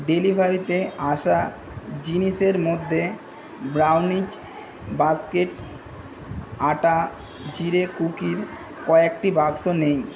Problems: constant background noise, background conversations at intervals